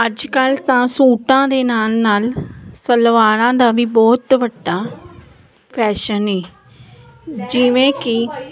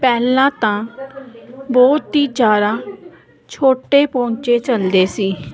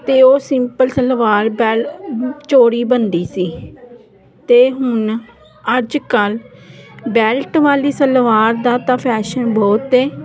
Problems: none marked